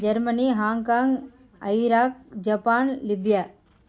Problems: background sounds at intervals